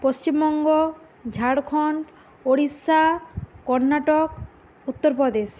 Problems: constant background noise